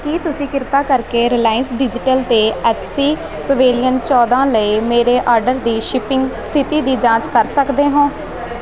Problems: none marked